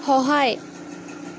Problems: constant background noise